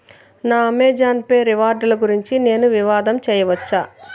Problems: background conversations at intervals